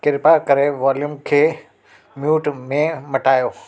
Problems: constant background noise